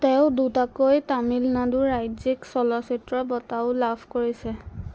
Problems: constant background noise